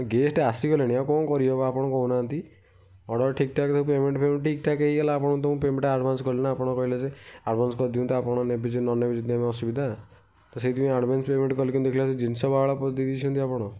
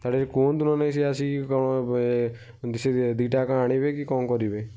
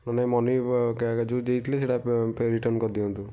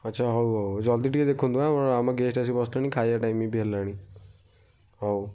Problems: none marked